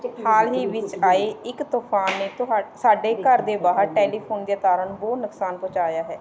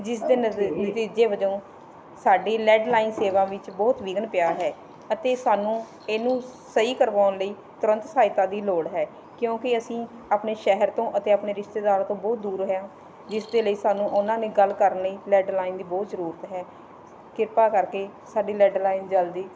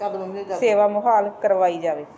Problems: background conversations at intervals